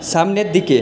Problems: constant background noise